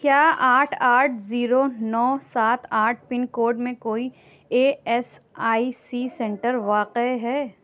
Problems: background sounds at intervals